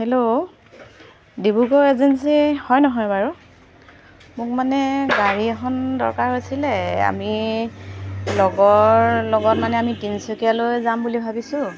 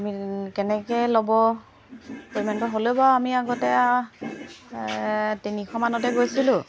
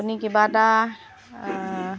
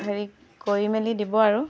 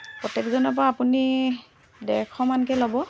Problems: constant background noise